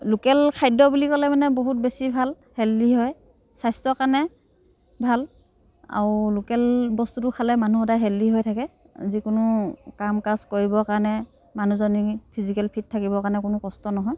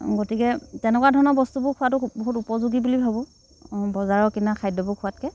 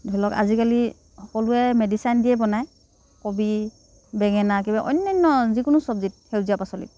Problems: none marked